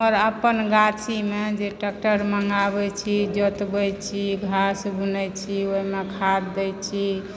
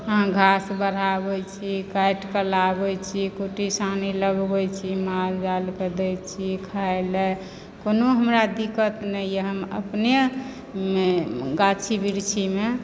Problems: background sounds at intervals